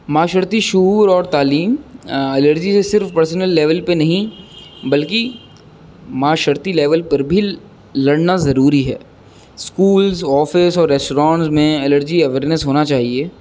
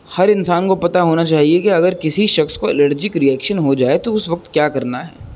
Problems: constant background noise